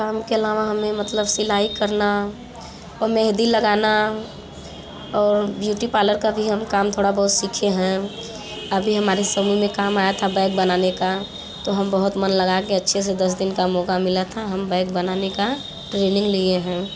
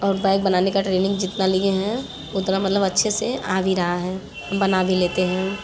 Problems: constant background noise, background conversations at intervals